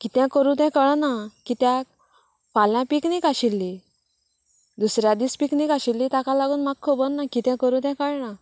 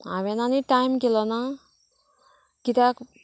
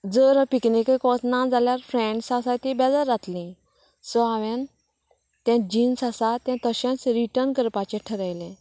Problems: none marked